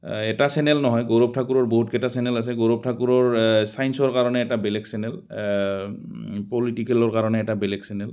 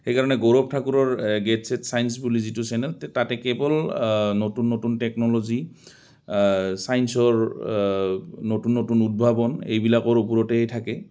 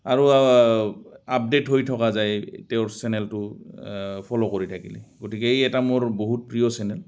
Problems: constant background noise